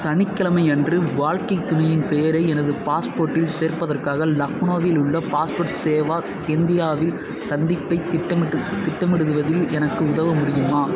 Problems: constant background noise, continuous background conversations